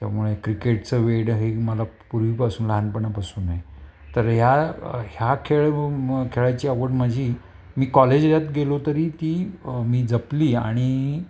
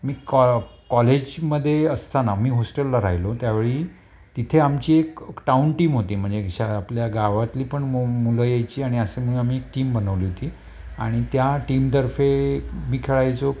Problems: constant background noise, background conversations at intervals